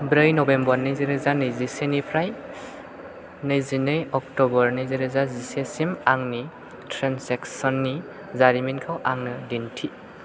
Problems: constant background noise